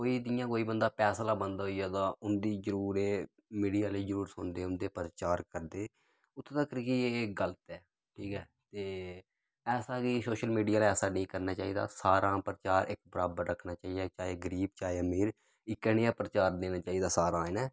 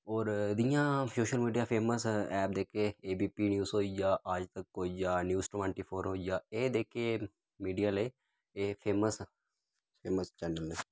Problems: none marked